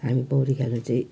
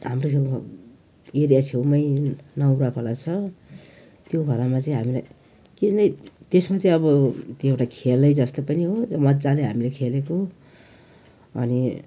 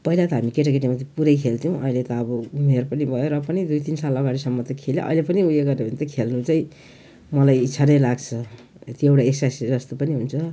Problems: background sounds at intervals